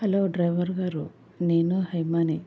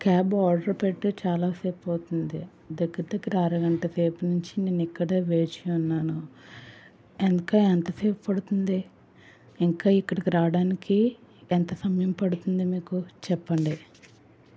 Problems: background sounds at intervals